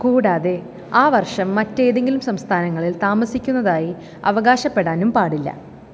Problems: none marked